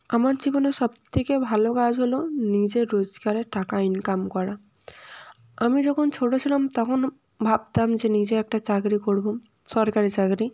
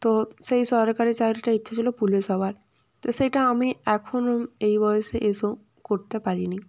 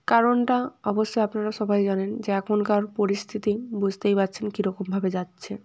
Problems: none marked